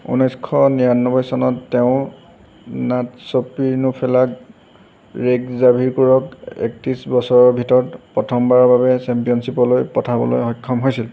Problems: none marked